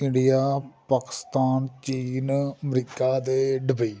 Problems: none marked